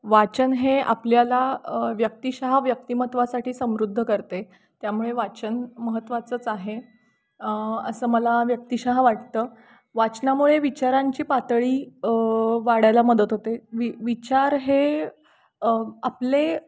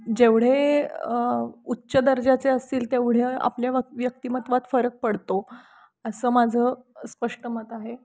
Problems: constant background noise, background conversations at intervals